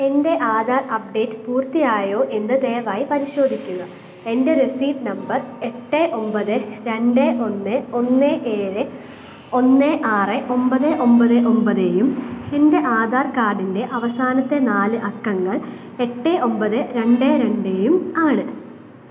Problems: background sounds at intervals